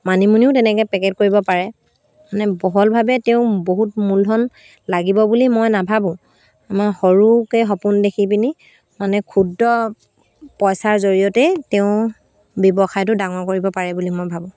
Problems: constant background noise